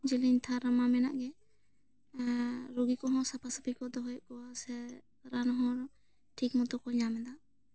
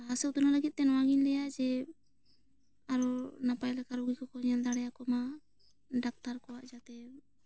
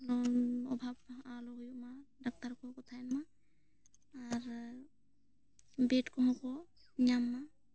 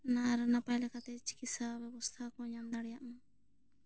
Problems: low volume